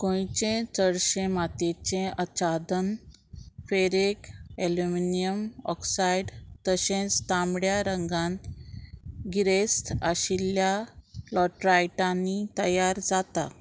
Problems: constant background noise